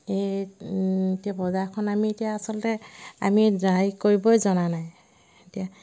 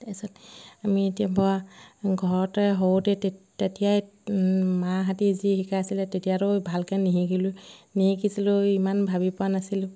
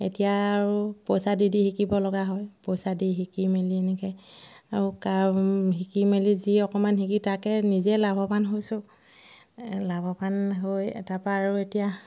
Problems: none marked